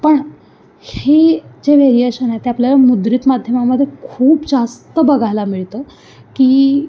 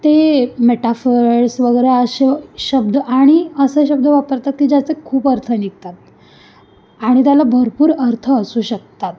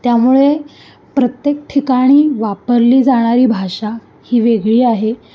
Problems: constant background noise, background conversations at intervals